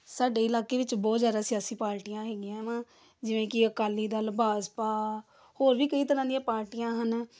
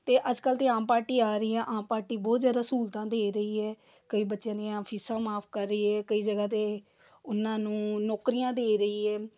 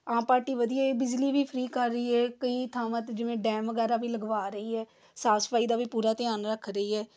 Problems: background sounds at intervals